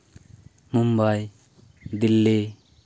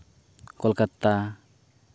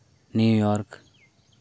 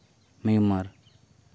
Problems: none marked